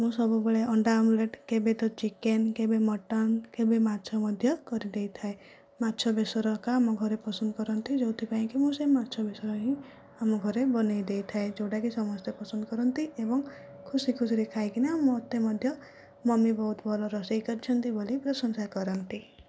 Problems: low volume